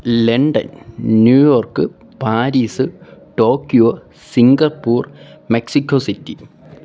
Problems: background sounds at intervals